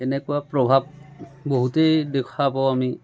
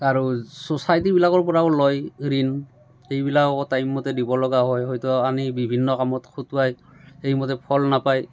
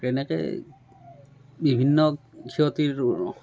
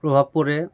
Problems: constant background noise, continuous background conversations